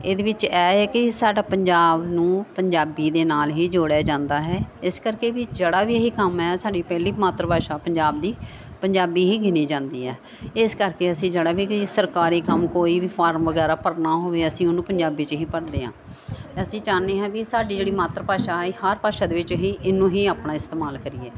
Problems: continuous background conversations